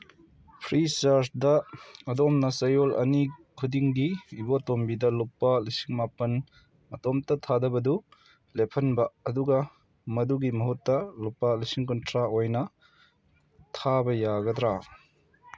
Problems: none marked